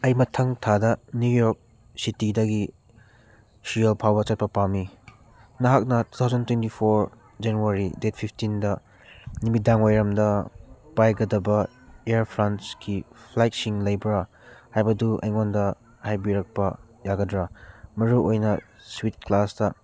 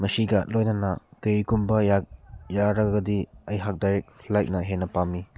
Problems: none marked